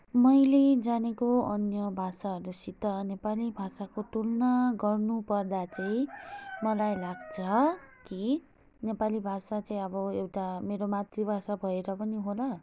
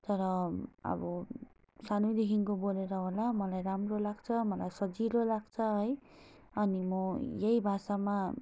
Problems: none marked